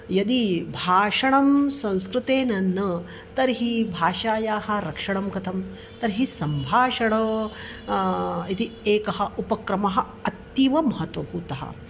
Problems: constant background noise